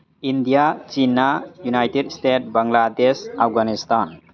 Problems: background conversations at intervals